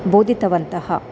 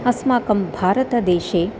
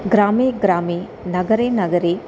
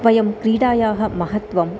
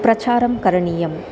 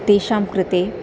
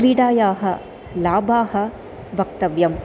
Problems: constant background noise, continuous background conversations